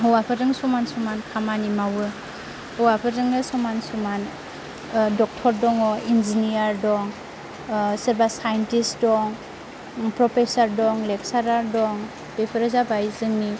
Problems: constant background noise